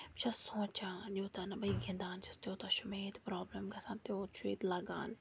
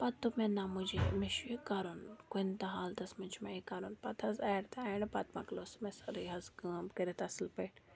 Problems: background sounds at intervals, low volume